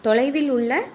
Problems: background sounds at intervals